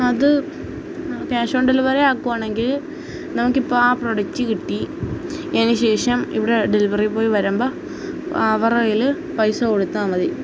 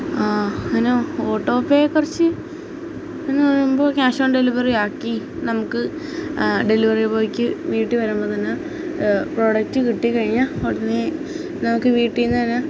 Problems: constant background noise